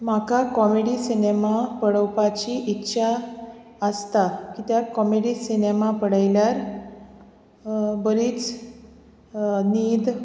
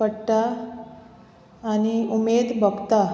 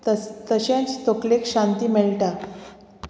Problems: constant background noise